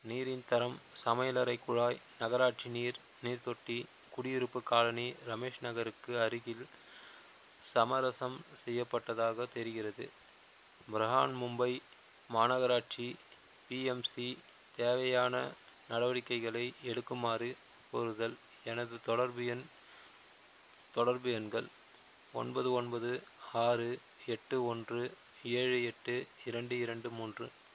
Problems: constant background noise